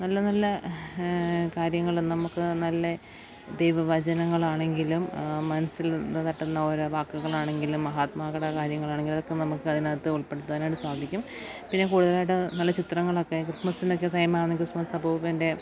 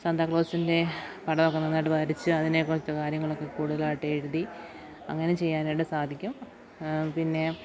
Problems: background sounds at intervals, low volume